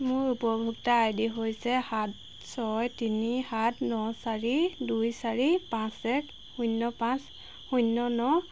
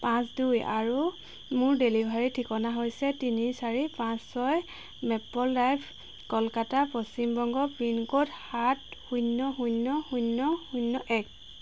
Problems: none marked